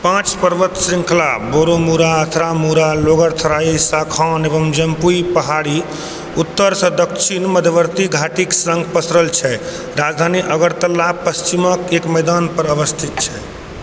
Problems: constant background noise